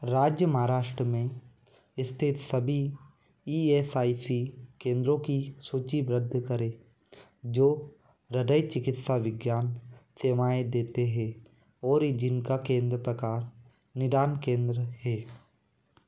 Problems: constant background noise